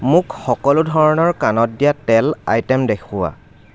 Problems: constant background noise